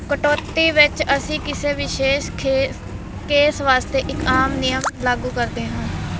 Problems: none marked